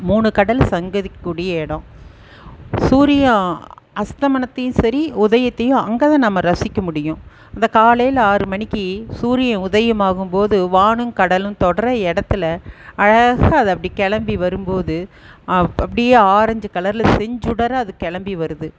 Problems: none marked